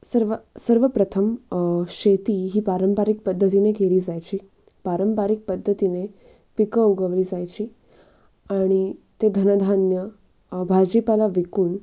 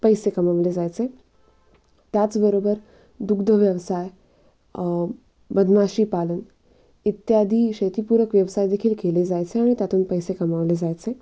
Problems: none marked